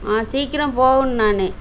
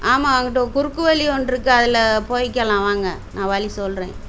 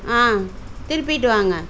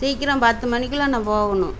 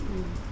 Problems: background sounds at intervals